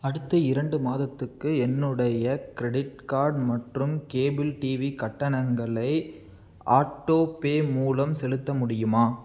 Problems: none marked